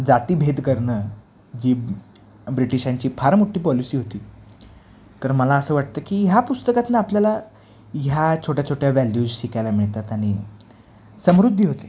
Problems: background sounds at intervals